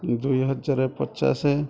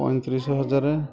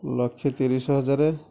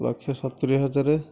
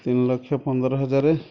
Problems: background sounds at intervals, background conversations at intervals